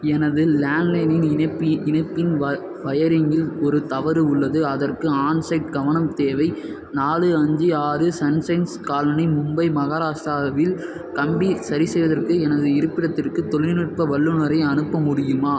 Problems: background sounds at intervals